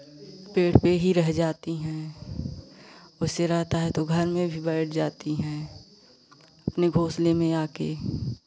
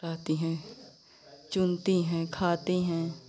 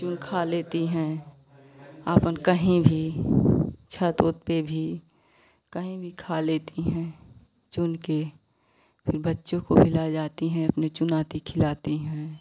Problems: constant background noise